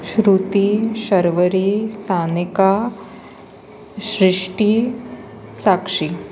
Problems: constant background noise, continuous background conversations